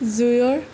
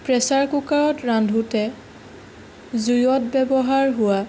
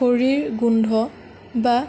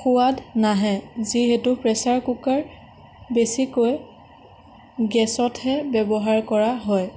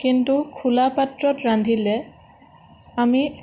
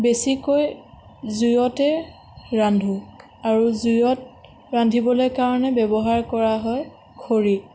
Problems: none marked